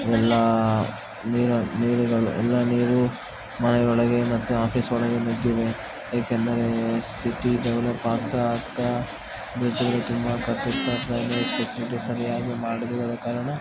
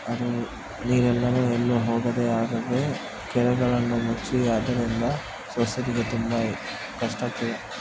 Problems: constant background noise